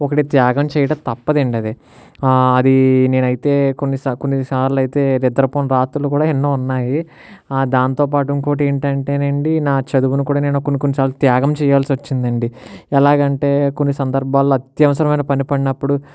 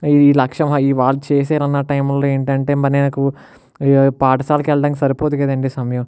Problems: none marked